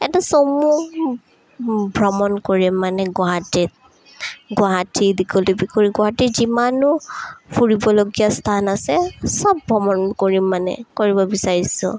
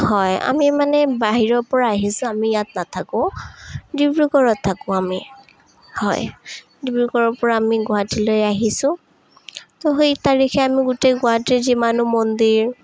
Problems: none marked